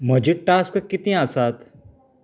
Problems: none marked